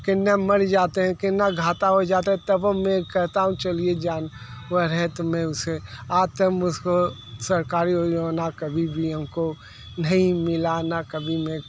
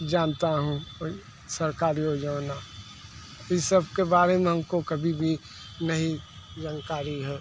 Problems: background sounds at intervals